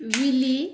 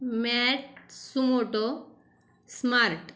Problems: constant background noise